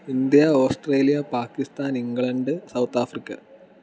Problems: none marked